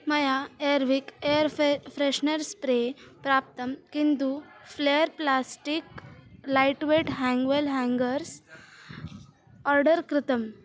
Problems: none marked